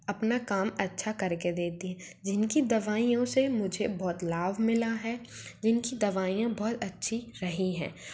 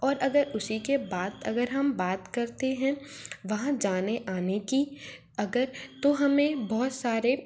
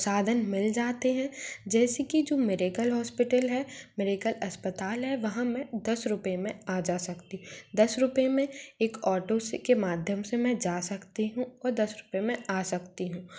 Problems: none marked